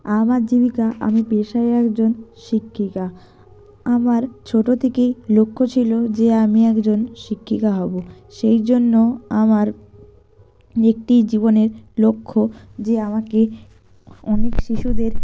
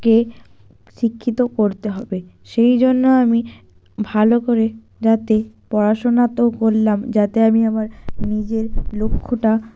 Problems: none marked